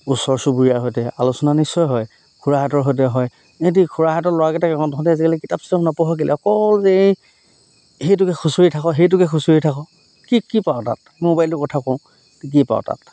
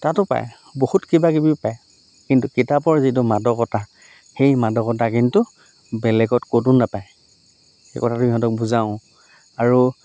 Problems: none marked